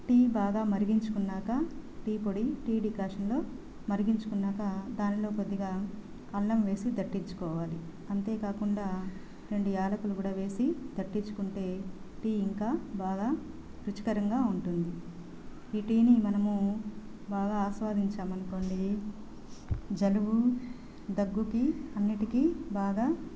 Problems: constant background noise, background conversations at intervals